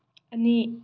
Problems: low volume